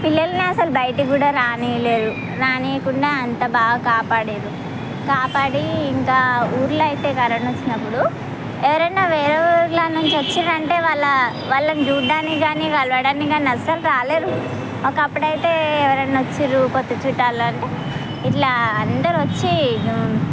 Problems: constant background noise